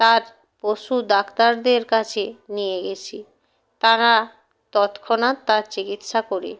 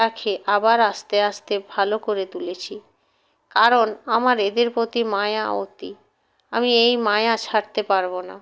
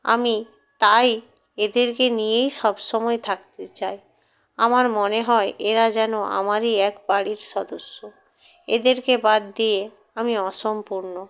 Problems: none marked